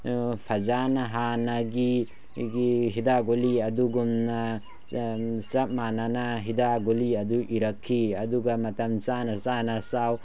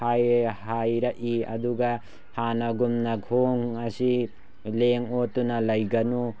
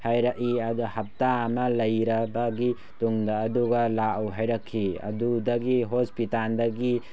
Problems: background sounds at intervals